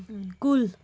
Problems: constant background noise